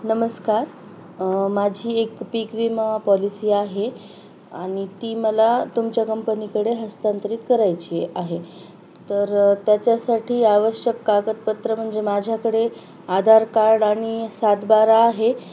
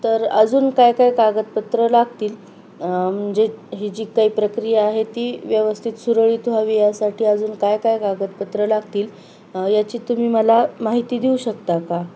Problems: constant background noise